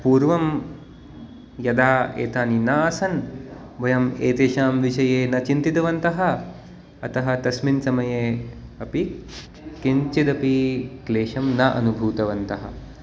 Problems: constant background noise